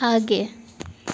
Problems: constant background noise